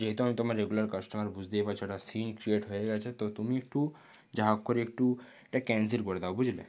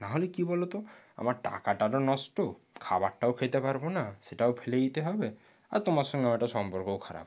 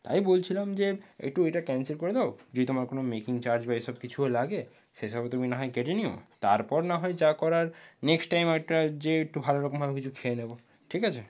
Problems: low volume